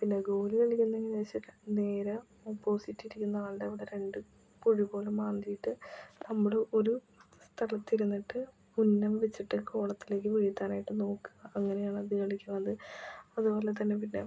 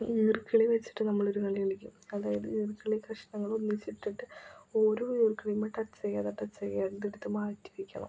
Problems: constant background noise, low volume